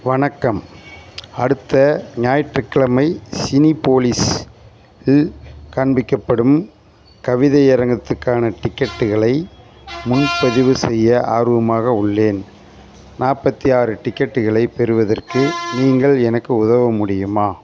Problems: constant background noise, background conversations at intervals